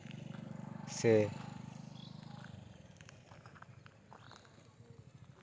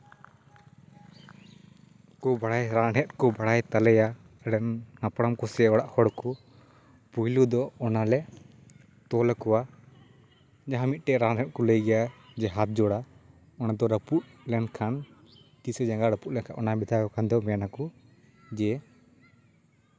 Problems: constant background noise